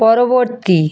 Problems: none marked